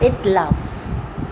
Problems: constant background noise